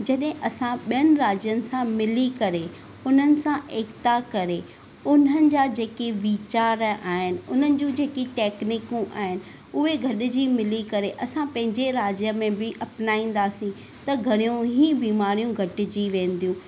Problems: none marked